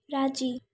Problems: none marked